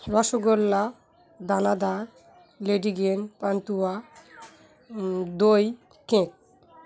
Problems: background sounds at intervals, background conversations at intervals